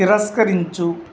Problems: constant background noise